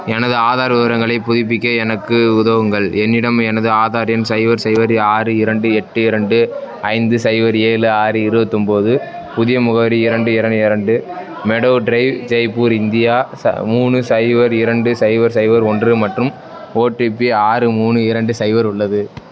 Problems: background conversations at intervals